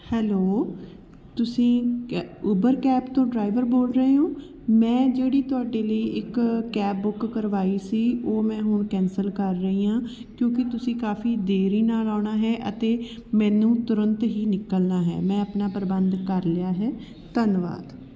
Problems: background sounds at intervals